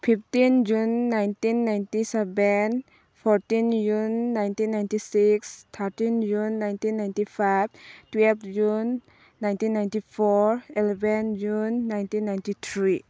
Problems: background sounds at intervals